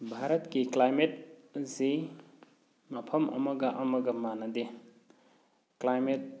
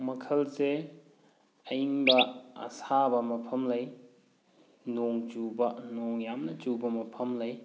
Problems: background sounds at intervals